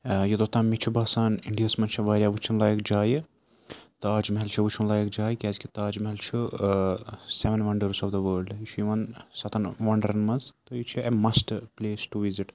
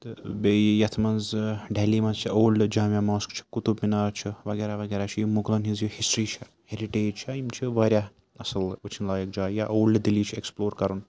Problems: constant background noise